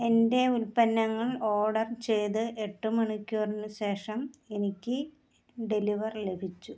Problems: low volume